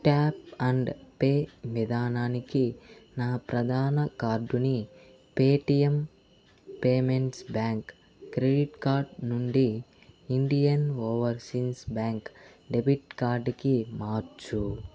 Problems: constant background noise